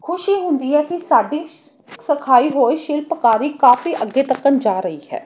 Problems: background sounds at intervals